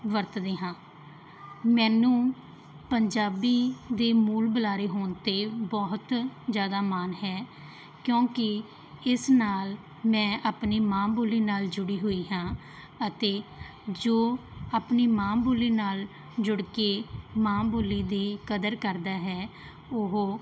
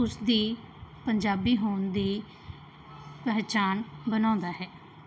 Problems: background sounds at intervals